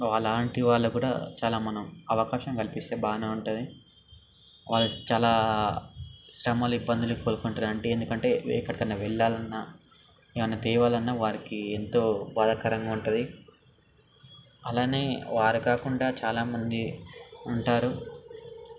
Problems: constant background noise